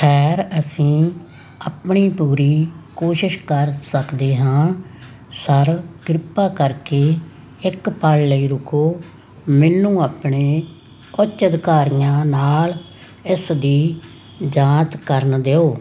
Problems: constant background noise